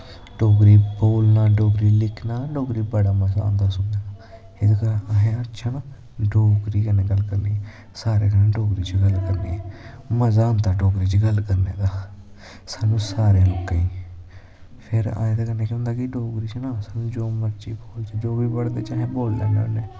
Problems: constant background noise